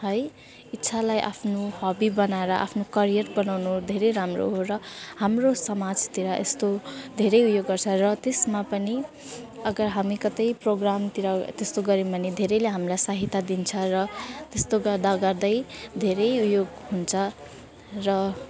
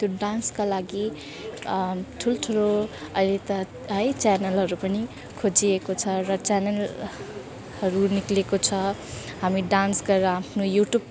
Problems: none marked